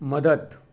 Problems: background sounds at intervals, background conversations at intervals